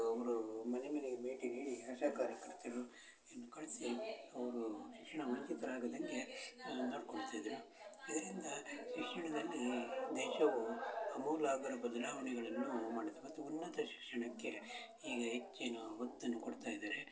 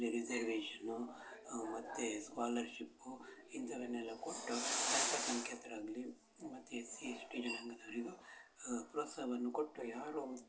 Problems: none marked